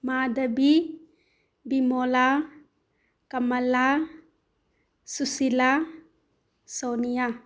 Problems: none marked